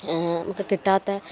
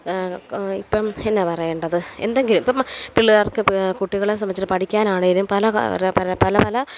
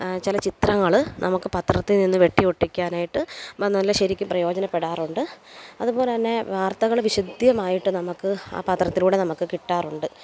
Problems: background sounds at intervals